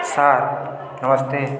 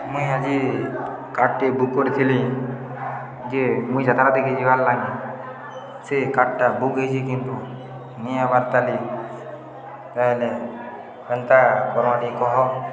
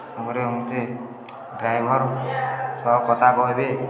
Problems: constant background noise, continuous background conversations